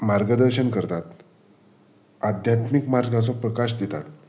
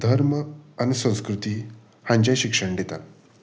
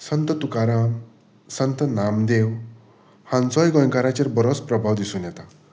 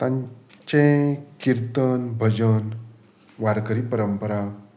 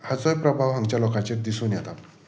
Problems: background sounds at intervals